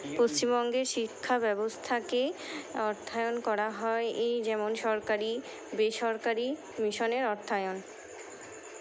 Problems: none marked